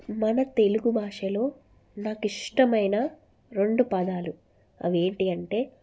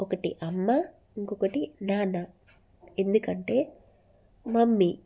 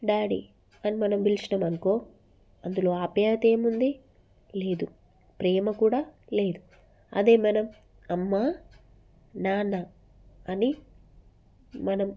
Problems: none marked